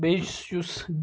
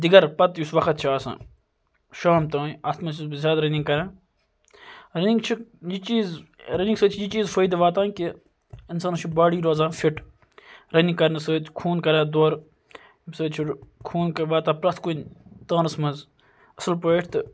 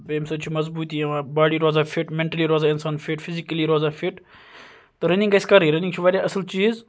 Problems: background sounds at intervals